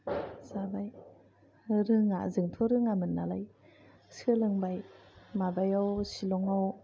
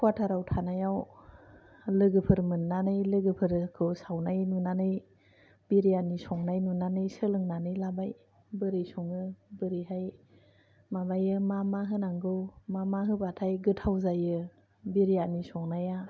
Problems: low volume